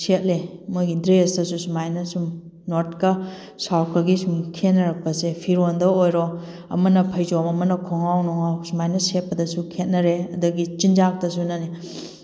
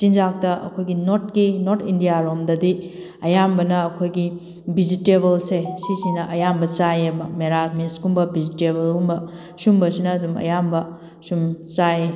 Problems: background sounds at intervals